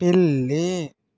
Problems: none marked